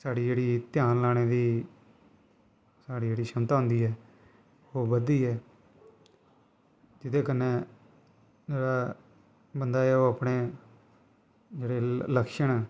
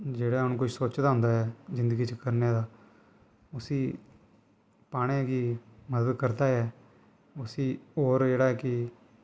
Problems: constant background noise